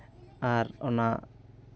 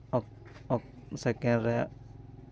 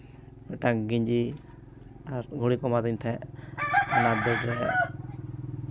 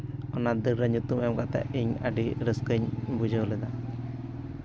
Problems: background sounds at intervals, continuous background conversations